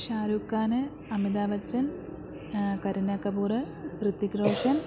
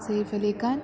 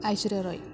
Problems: background conversations at intervals